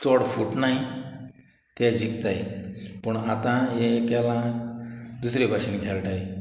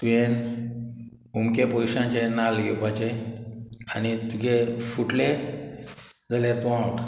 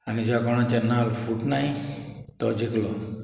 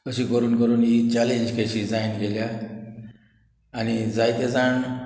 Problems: background sounds at intervals, background conversations at intervals